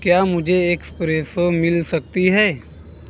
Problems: none marked